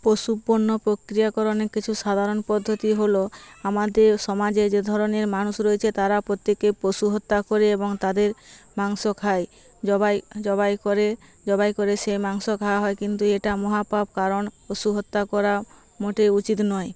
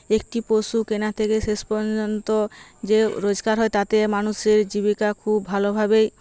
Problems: constant background noise